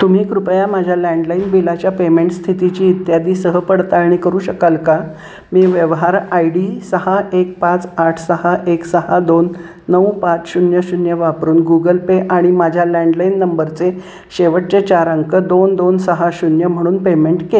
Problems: constant background noise